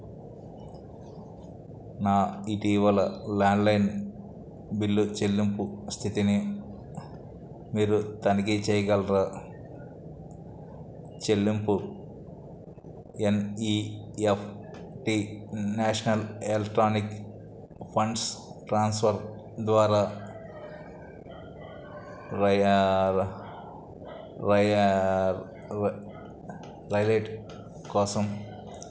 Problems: none marked